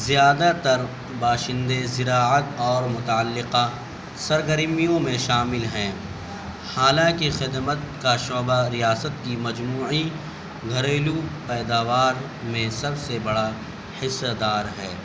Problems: constant background noise, background conversations at intervals